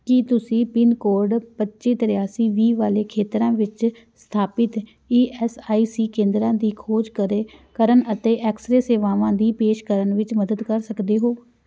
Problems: background sounds at intervals